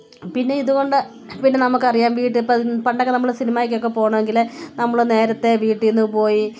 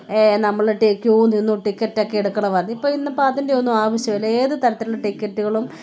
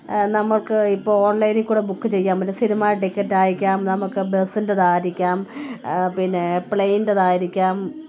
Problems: background sounds at intervals